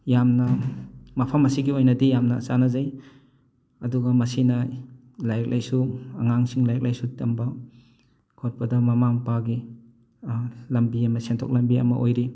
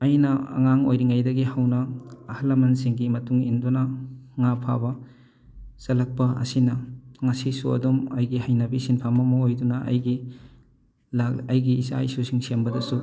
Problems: background sounds at intervals